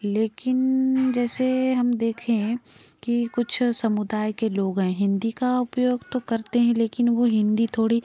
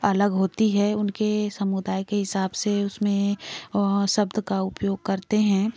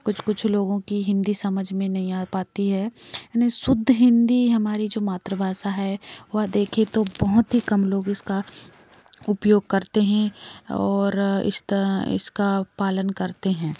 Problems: background sounds at intervals, background conversations at intervals